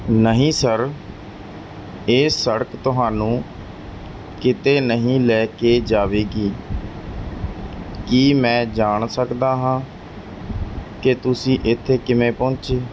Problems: background sounds at intervals